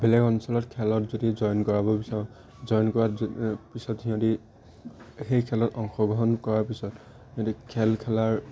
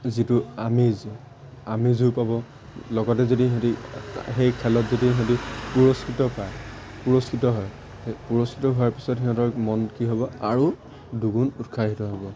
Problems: background sounds at intervals